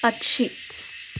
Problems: constant background noise